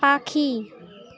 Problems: none marked